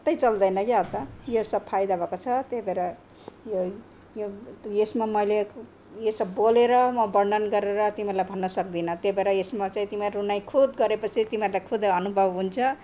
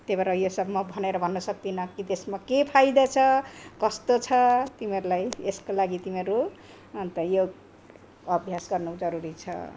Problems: none marked